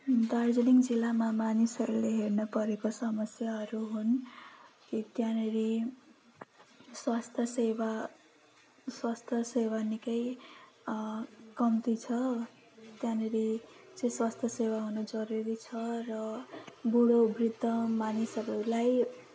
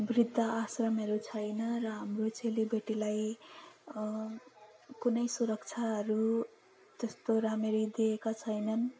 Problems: none marked